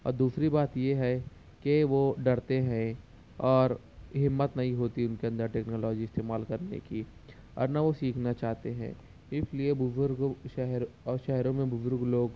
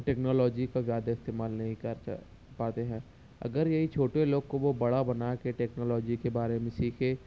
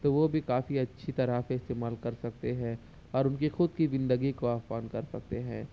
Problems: constant background noise, low volume